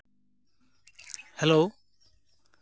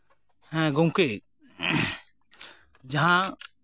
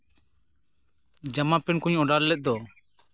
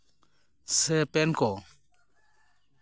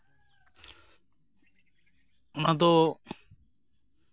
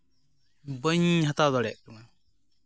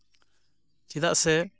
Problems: constant background noise